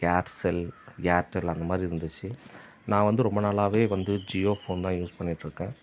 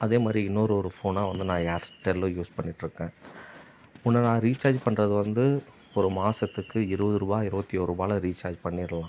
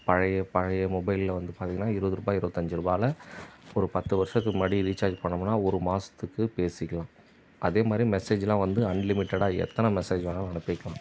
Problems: background sounds at intervals